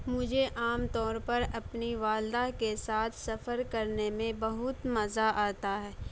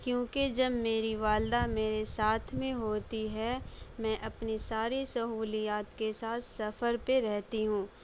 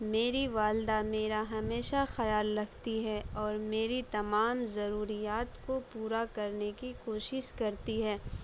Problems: none marked